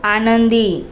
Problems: none marked